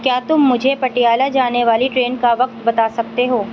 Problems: constant background noise